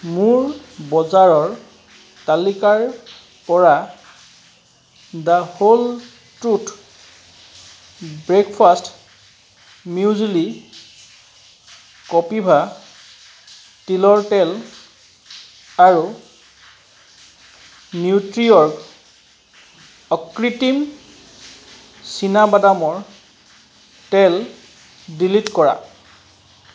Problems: background sounds at intervals